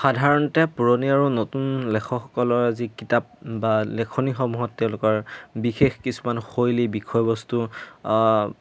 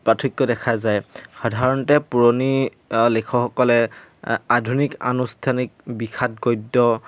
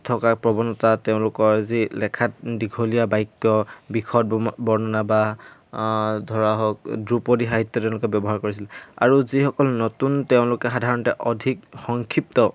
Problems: background sounds at intervals